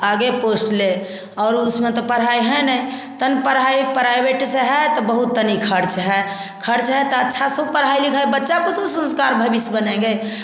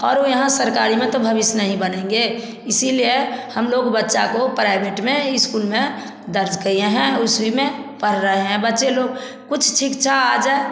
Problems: constant background noise